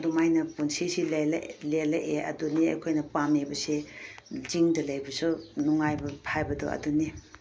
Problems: background sounds at intervals